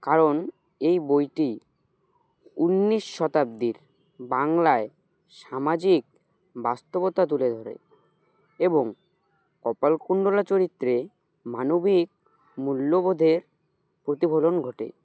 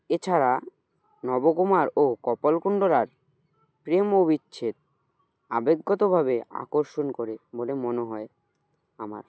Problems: none marked